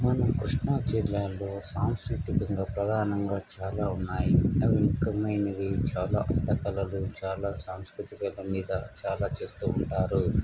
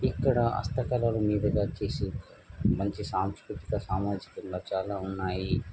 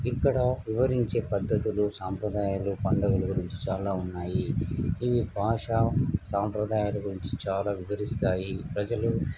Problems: constant background noise